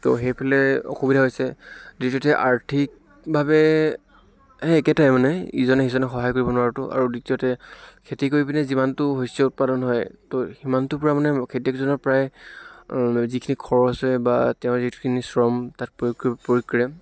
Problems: none marked